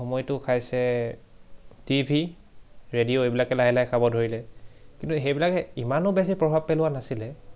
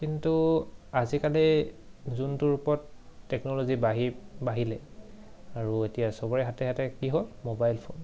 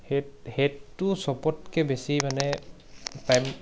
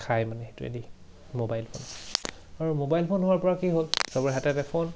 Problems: background sounds at intervals, background conversations at intervals